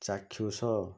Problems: low volume